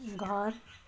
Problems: background sounds at intervals